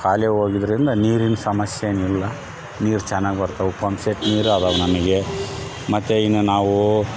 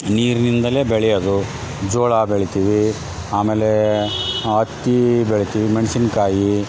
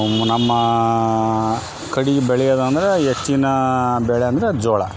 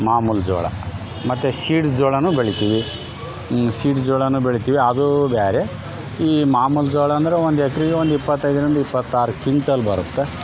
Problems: constant background noise